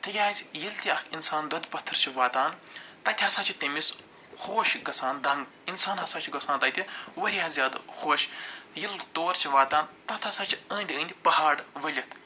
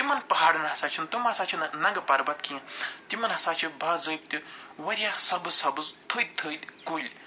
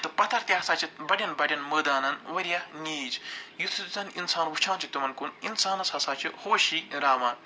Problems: none marked